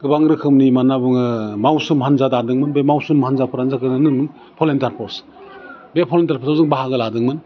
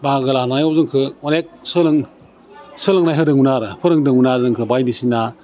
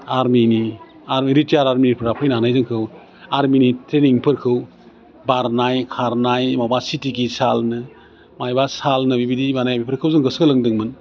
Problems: constant background noise